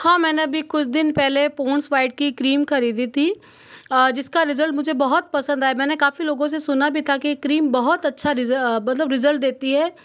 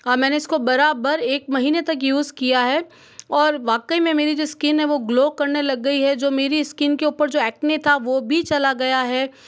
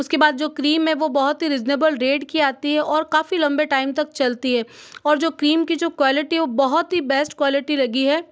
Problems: none marked